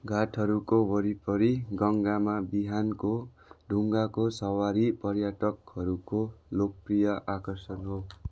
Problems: background sounds at intervals